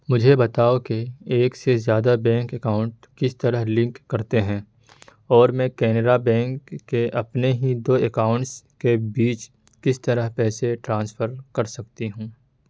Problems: background sounds at intervals